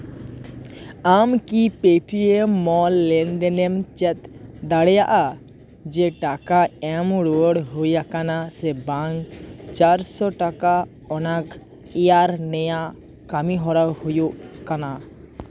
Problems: none marked